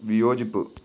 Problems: constant background noise